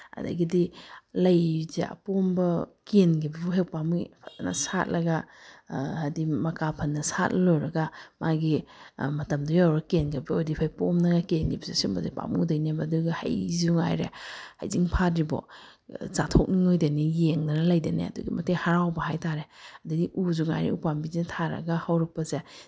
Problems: none marked